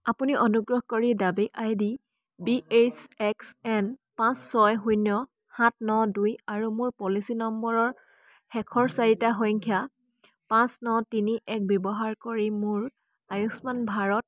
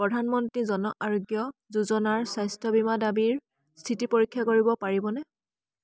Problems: constant background noise, background conversations at intervals